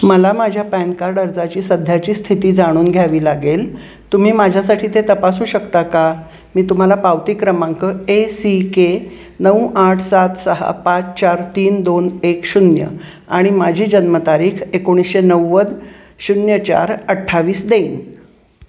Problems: constant background noise